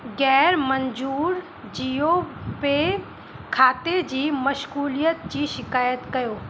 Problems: constant background noise